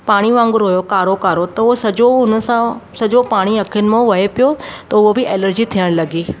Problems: constant background noise